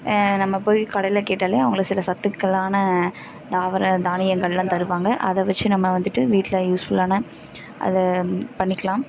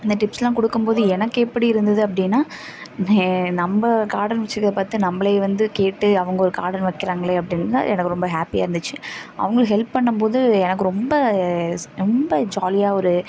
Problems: constant background noise, background conversations at intervals